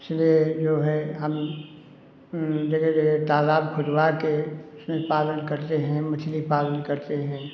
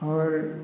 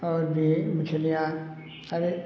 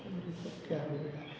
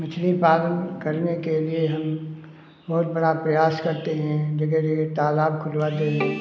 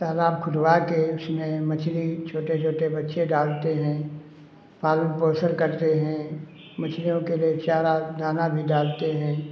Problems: constant background noise